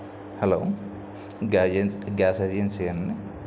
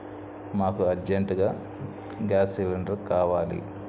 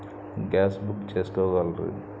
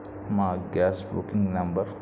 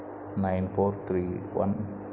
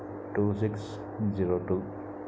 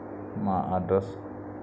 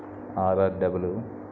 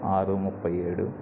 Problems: constant background noise, low volume